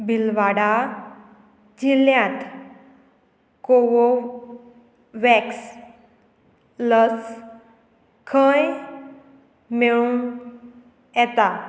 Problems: constant background noise